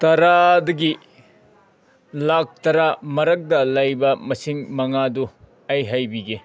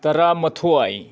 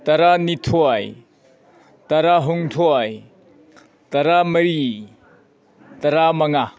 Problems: background sounds at intervals